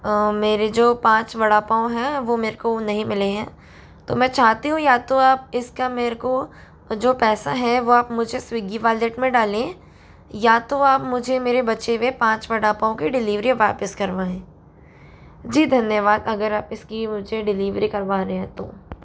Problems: none marked